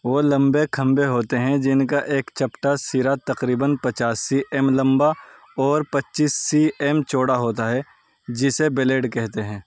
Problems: none marked